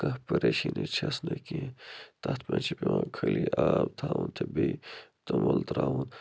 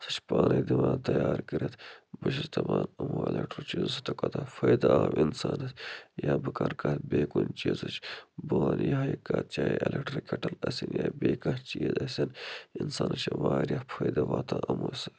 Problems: low volume